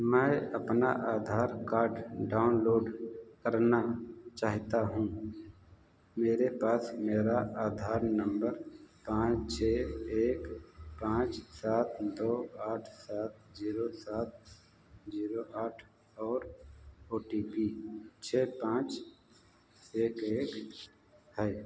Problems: background sounds at intervals, echo